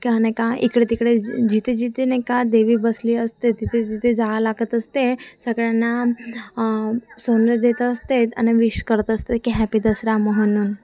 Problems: constant background noise, continuous background conversations